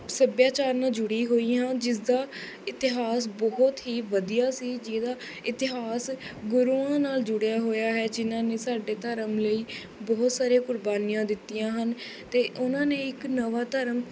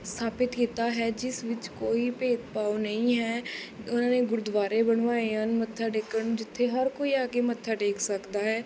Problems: constant background noise